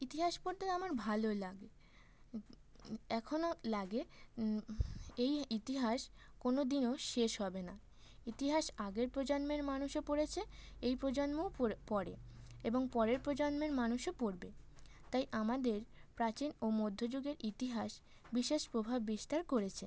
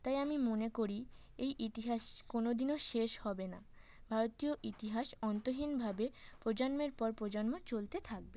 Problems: constant background noise